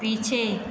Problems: constant background noise, continuous background conversations